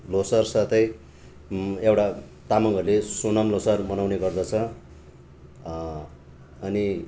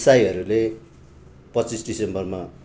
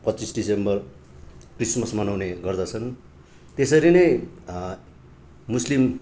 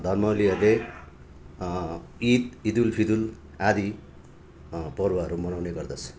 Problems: background sounds at intervals, background conversations at intervals